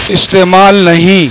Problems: constant background noise